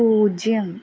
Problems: constant background noise